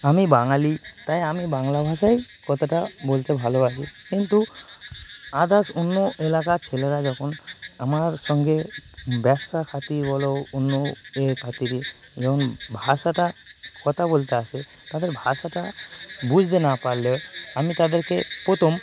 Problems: none marked